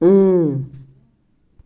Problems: background sounds at intervals